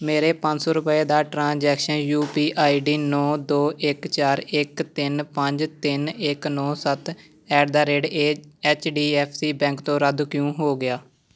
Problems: background sounds at intervals